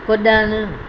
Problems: constant background noise, echo